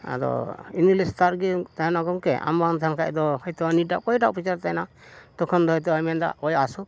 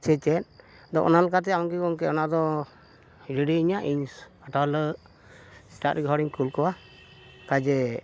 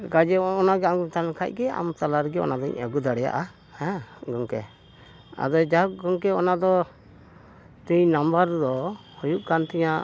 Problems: none marked